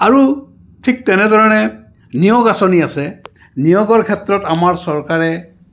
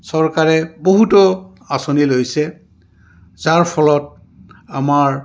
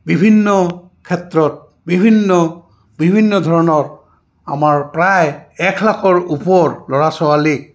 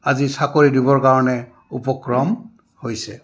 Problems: background sounds at intervals